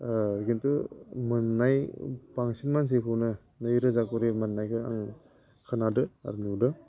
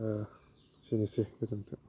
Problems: constant background noise